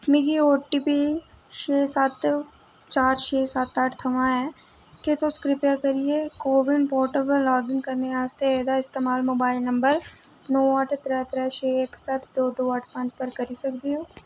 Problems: none marked